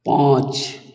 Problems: echo